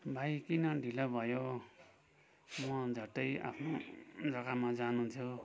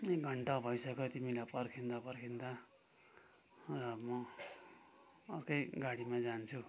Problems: none marked